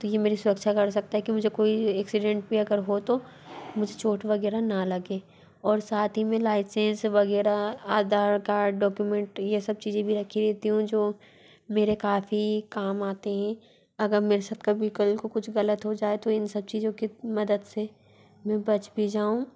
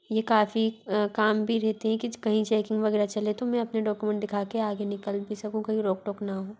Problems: constant background noise